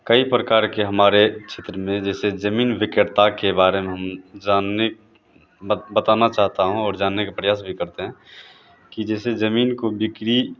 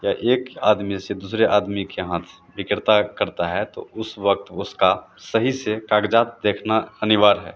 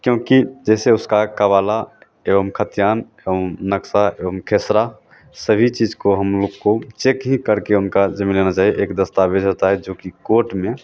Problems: constant background noise